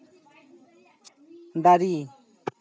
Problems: none marked